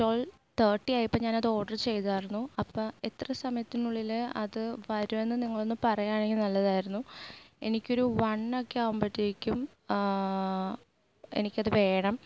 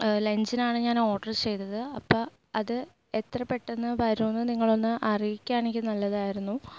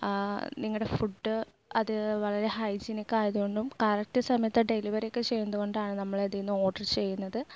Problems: low volume